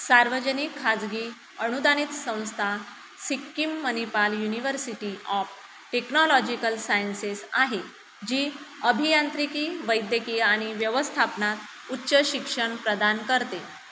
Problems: constant background noise